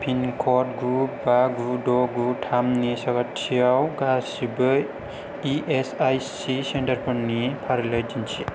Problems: none marked